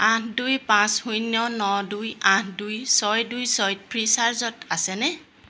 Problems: constant background noise